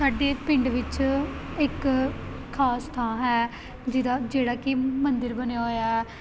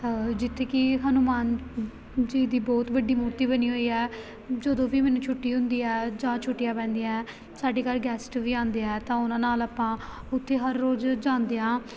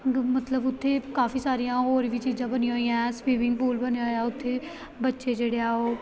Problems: none marked